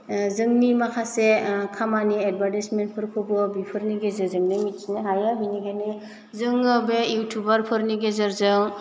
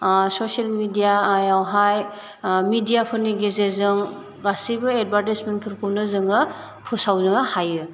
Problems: none marked